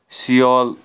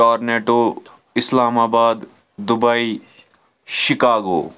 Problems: background sounds at intervals